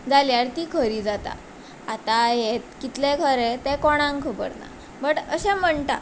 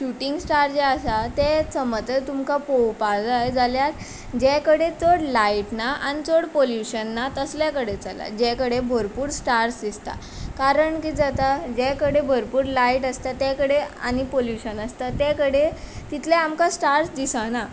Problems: constant background noise